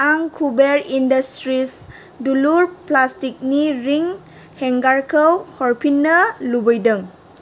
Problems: none marked